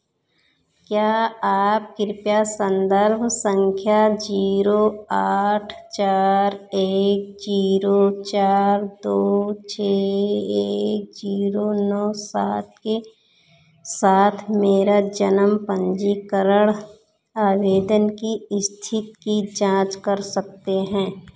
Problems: echo